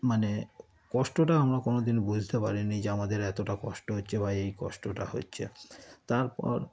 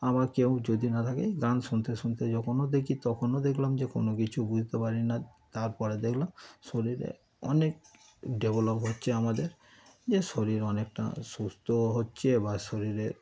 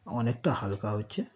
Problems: constant background noise, continuous background conversations